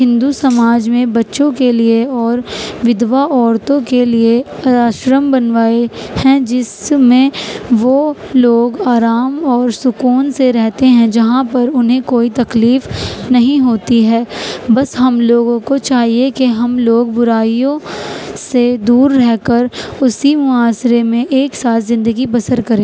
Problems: constant background noise